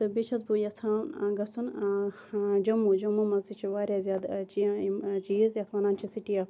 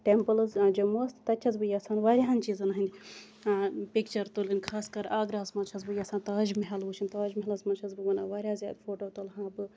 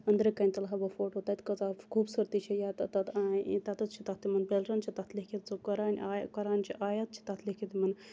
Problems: constant background noise